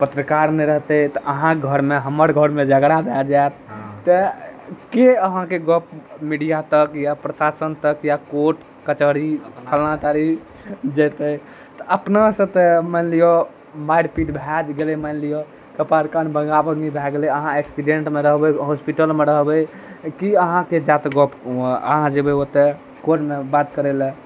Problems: none marked